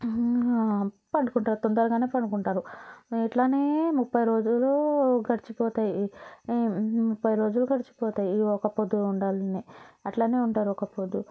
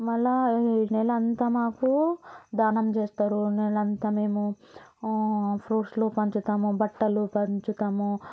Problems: background sounds at intervals